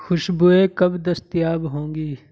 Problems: none marked